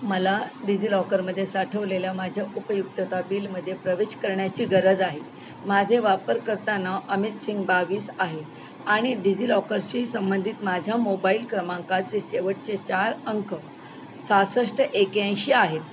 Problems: none marked